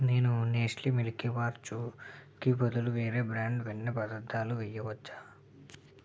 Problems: low volume